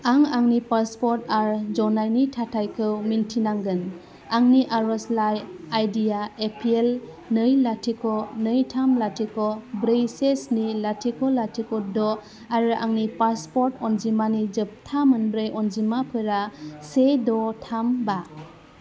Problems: constant background noise